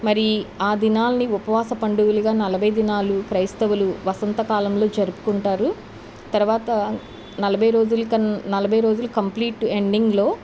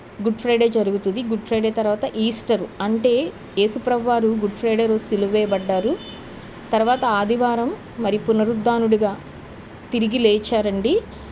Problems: none marked